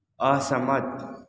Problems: echo